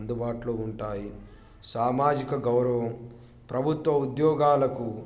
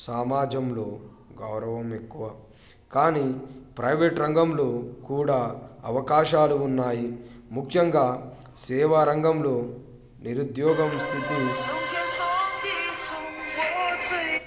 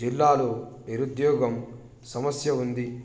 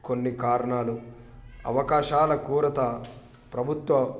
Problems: background sounds at intervals